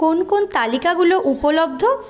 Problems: continuous background conversations